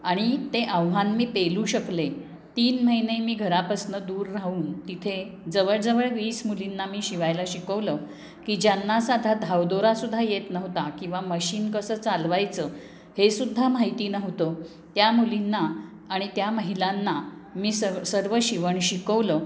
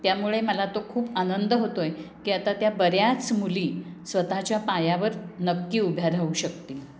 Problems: none marked